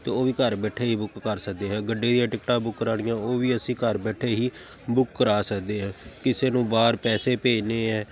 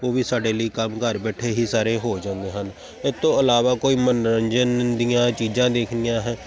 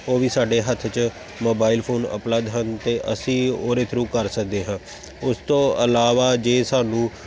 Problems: constant background noise